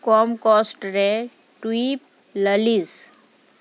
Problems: background sounds at intervals